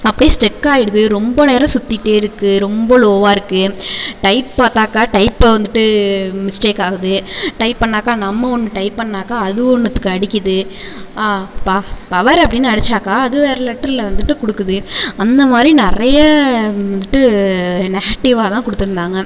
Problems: constant background noise